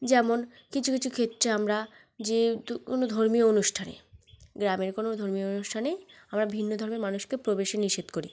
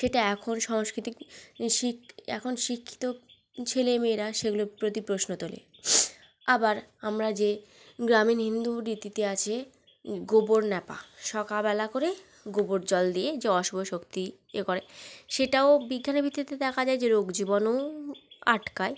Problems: none marked